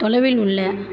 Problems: background sounds at intervals